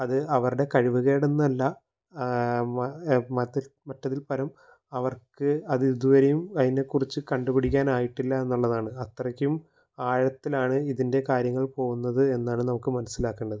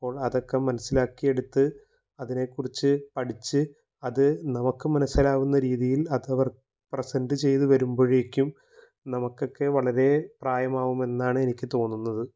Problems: low volume